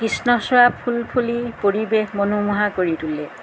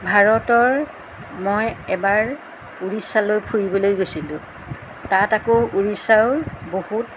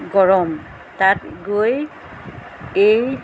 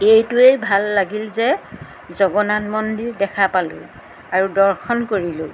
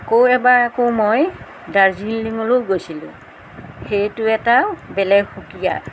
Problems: background sounds at intervals